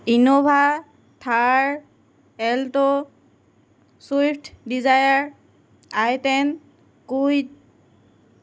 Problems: constant background noise